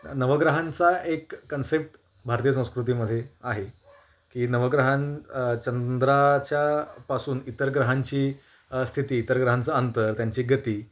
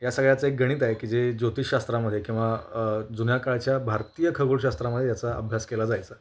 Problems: constant background noise, background conversations at intervals